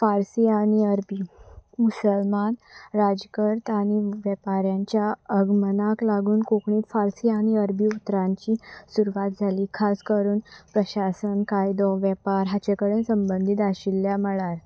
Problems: none marked